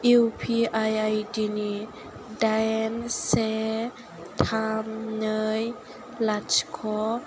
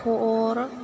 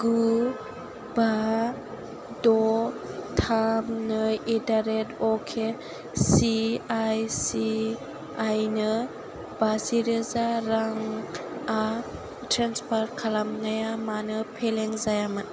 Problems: constant background noise